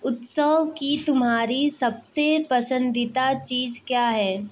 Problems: background sounds at intervals